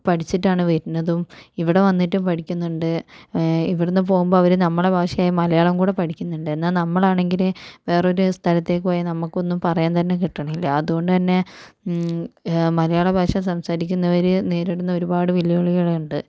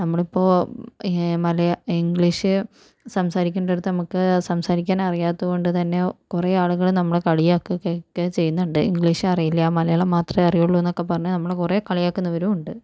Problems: none marked